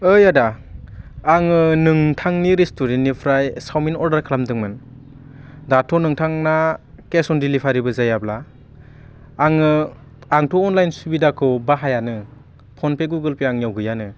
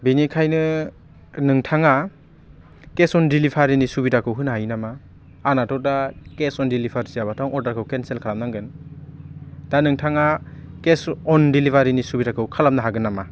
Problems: constant background noise